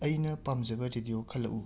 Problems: low volume